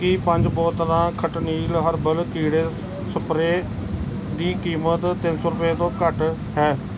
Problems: background sounds at intervals